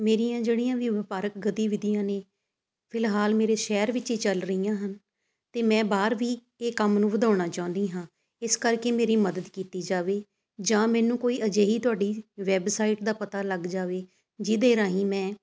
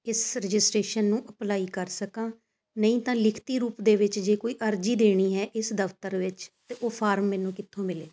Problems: constant background noise